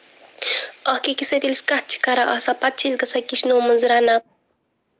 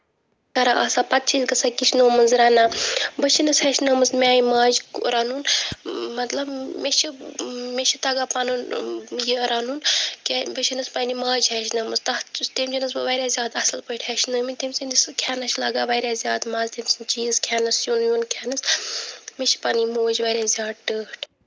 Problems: none marked